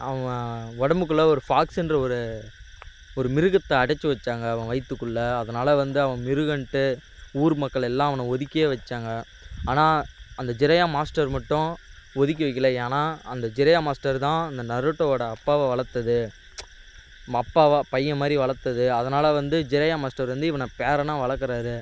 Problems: constant background noise